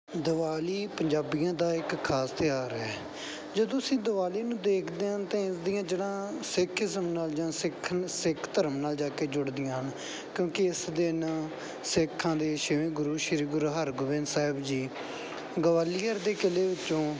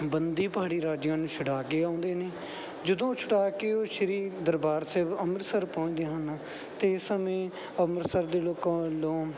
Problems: none marked